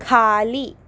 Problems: none marked